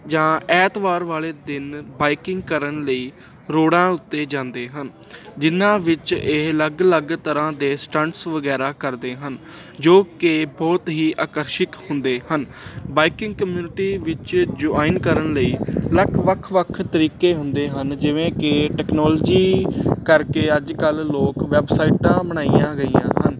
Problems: none marked